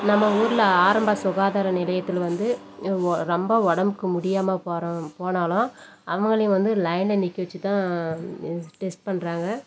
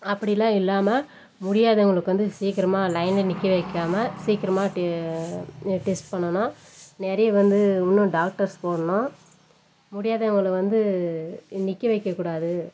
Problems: constant background noise